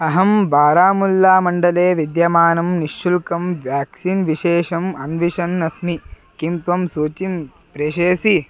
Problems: none marked